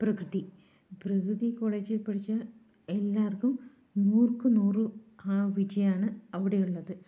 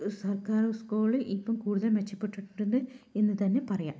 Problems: none marked